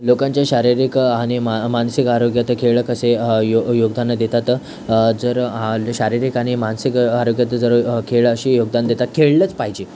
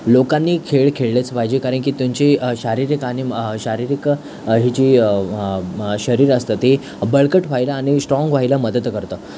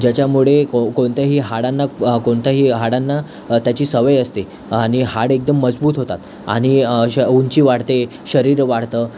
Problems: constant background noise, background conversations at intervals